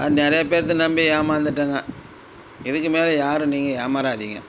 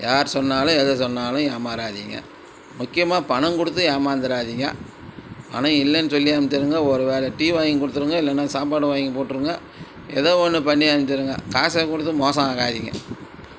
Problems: background sounds at intervals